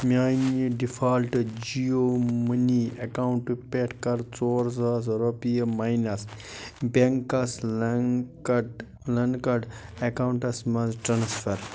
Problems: constant background noise